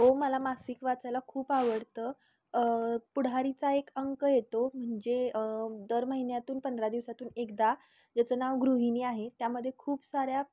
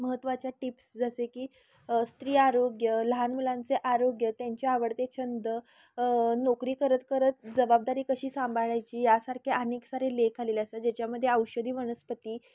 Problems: constant background noise